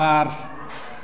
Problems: constant background noise